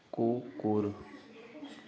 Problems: continuous background conversations